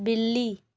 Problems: none marked